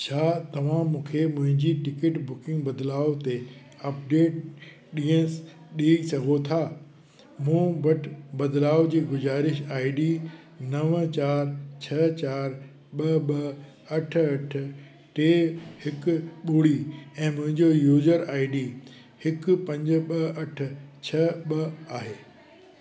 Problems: constant background noise, echo